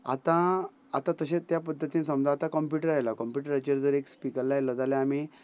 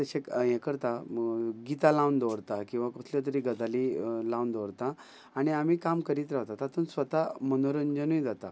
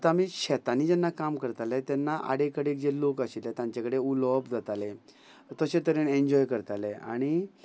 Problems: background conversations at intervals